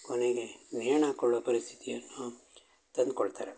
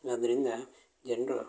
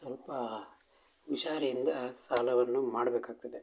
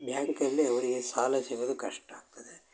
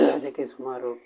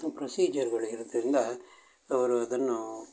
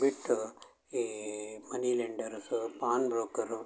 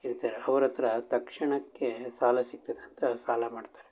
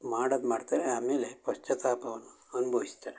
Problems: background sounds at intervals